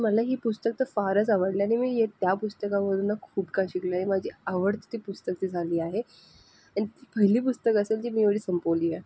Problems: none marked